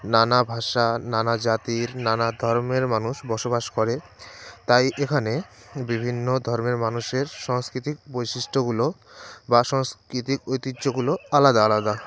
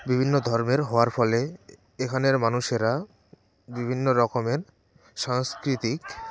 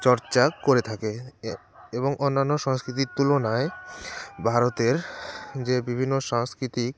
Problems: constant background noise